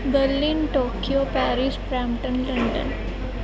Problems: constant background noise